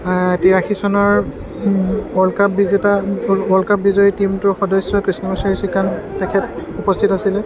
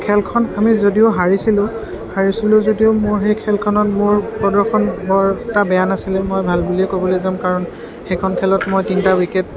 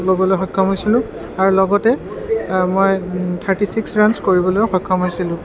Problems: background sounds at intervals, continuous background conversations